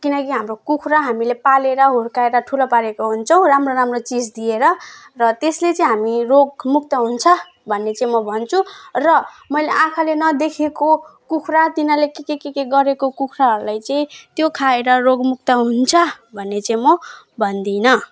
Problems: none marked